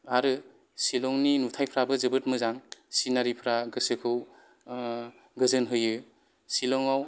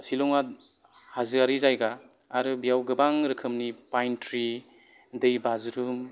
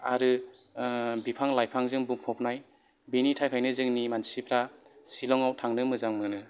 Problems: background sounds at intervals